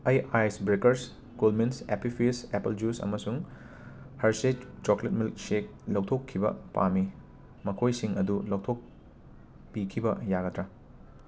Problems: constant background noise